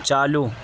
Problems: constant background noise